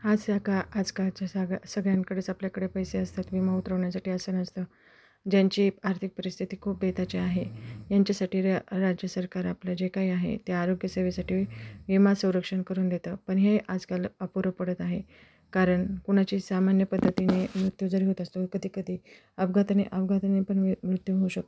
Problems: constant background noise, background conversations at intervals